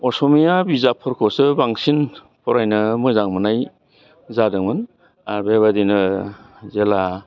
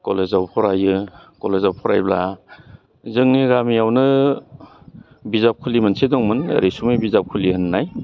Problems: constant background noise